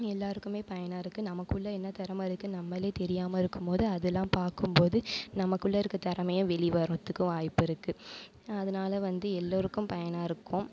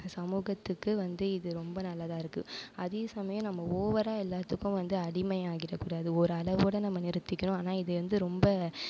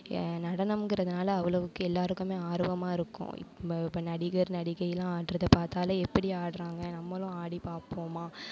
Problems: none marked